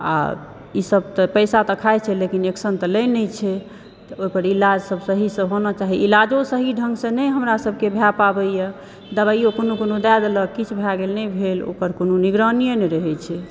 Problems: background sounds at intervals